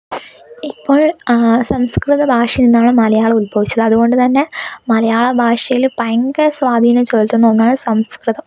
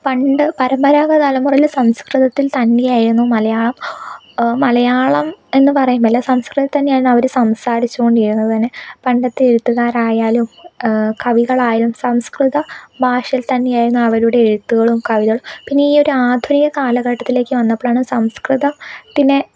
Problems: none marked